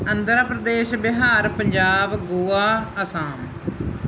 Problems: background sounds at intervals